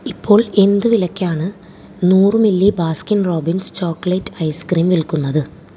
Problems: low volume